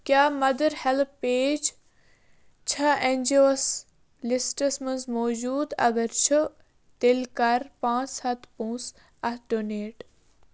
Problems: none marked